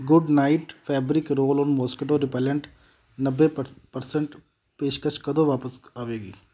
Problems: background sounds at intervals